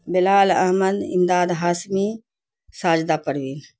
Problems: constant background noise